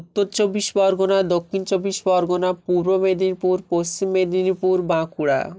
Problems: none marked